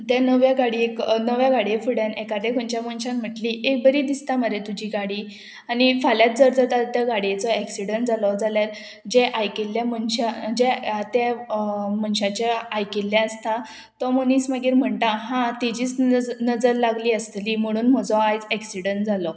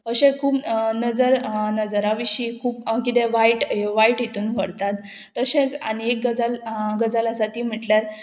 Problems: constant background noise